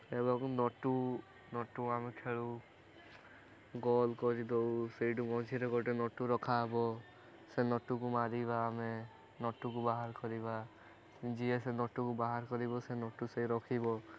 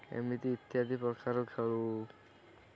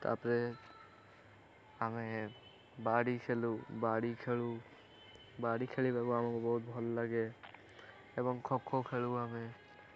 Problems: constant background noise